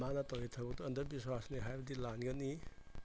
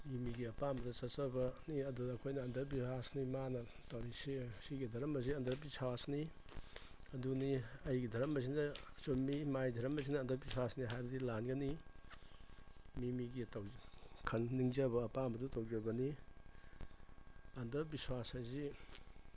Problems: background sounds at intervals